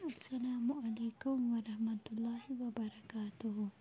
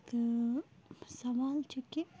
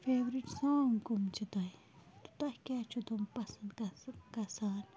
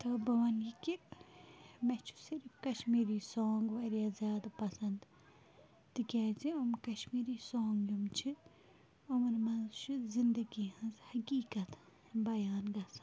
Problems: background sounds at intervals, low volume